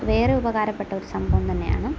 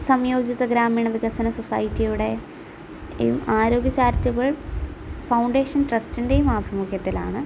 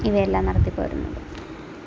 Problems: constant background noise